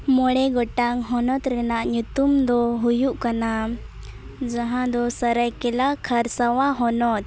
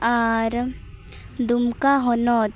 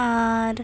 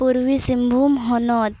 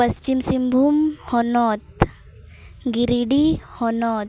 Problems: background sounds at intervals, background conversations at intervals